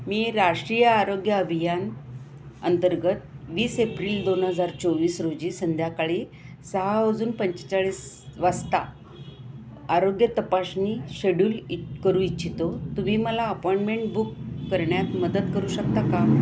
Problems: constant background noise